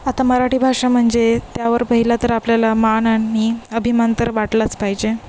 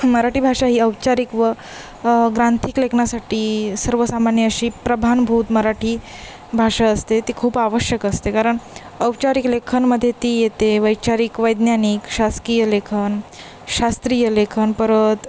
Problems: constant background noise